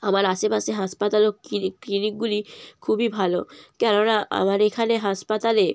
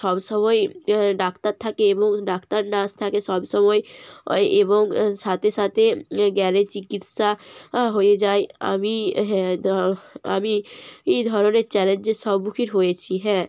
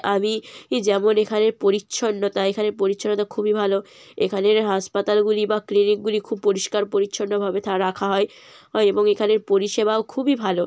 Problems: none marked